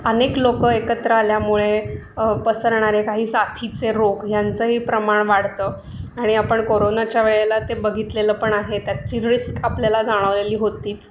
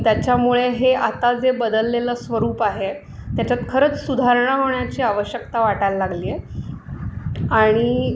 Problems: constant background noise, background conversations at intervals